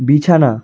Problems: continuous background conversations